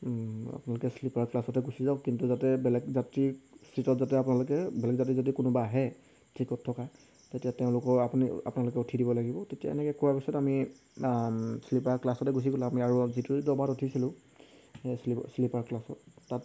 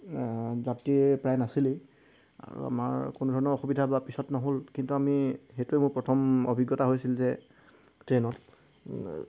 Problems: none marked